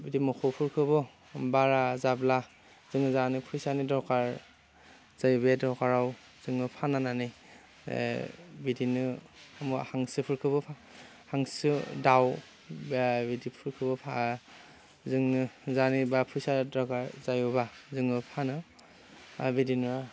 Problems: constant background noise